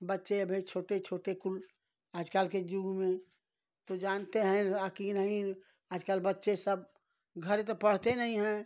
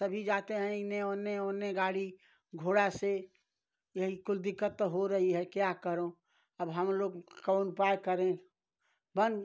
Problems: none marked